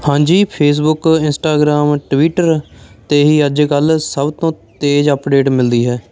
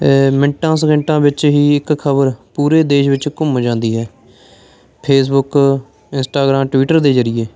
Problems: constant background noise, background conversations at intervals